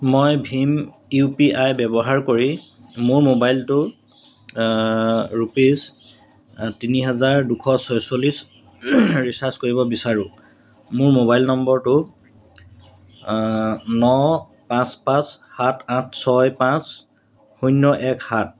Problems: none marked